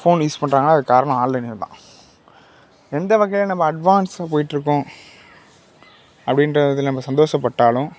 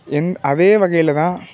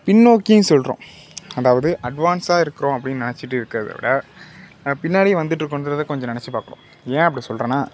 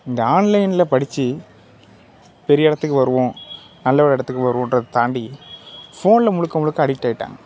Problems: constant background noise